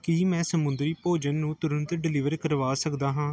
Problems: background sounds at intervals